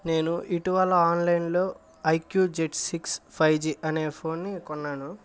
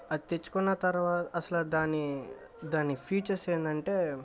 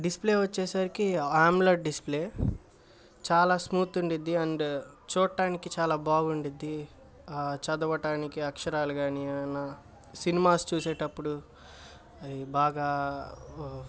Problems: none marked